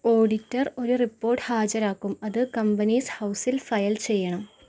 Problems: background sounds at intervals